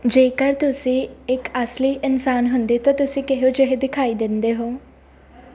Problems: none marked